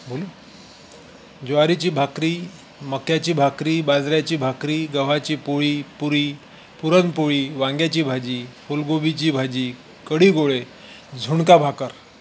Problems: constant background noise